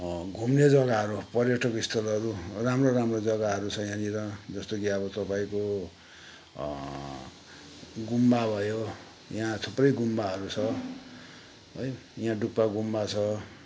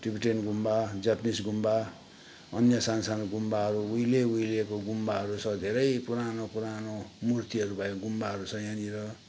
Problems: none marked